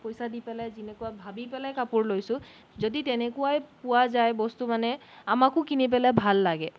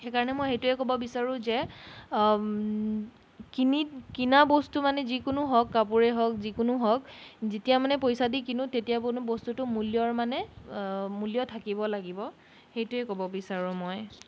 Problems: background sounds at intervals